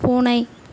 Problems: echo